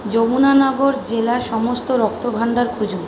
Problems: none marked